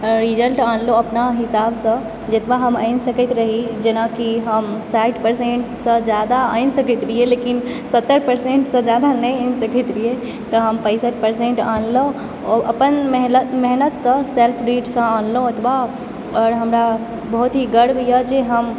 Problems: constant background noise